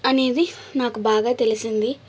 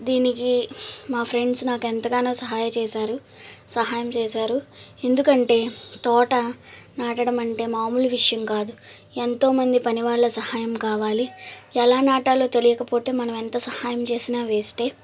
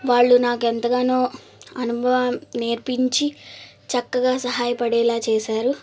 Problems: constant background noise